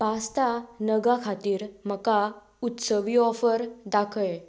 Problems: background sounds at intervals